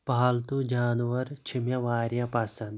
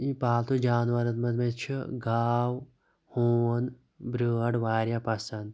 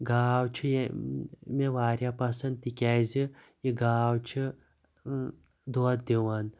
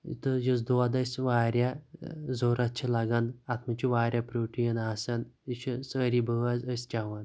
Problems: none marked